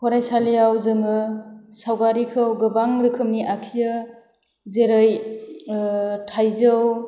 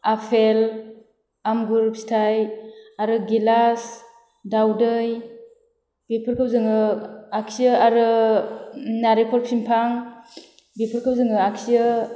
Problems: none marked